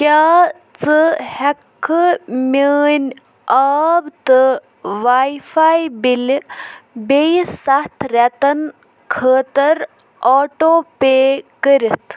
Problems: background sounds at intervals